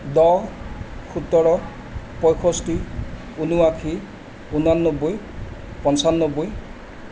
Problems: constant background noise